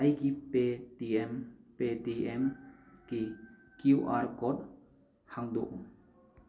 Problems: background sounds at intervals